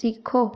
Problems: none marked